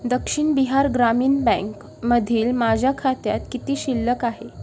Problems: none marked